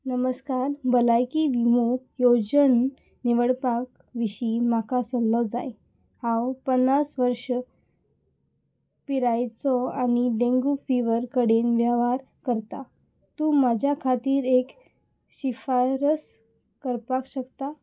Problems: none marked